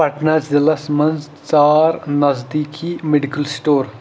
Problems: none marked